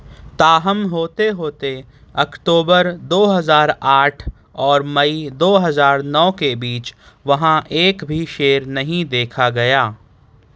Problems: none marked